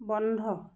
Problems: none marked